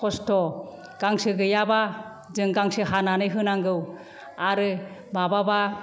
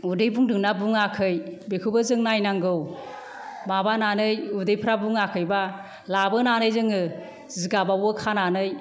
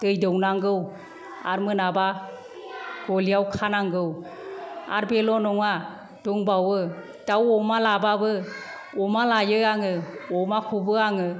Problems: none marked